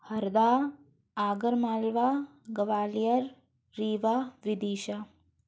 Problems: background sounds at intervals